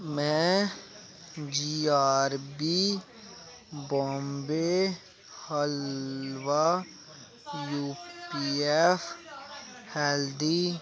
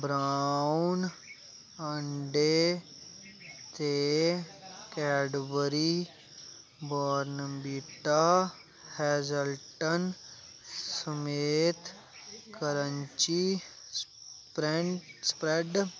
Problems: constant background noise